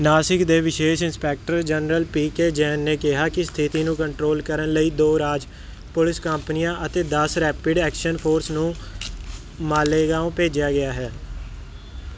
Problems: none marked